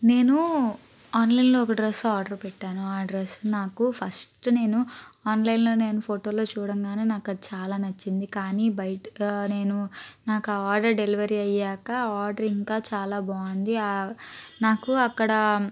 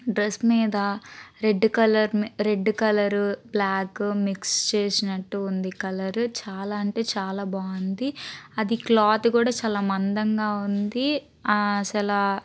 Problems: none marked